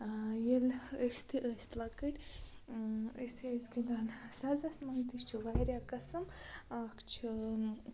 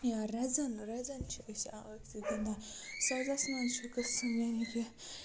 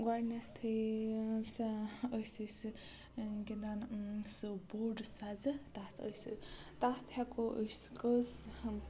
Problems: constant background noise, low volume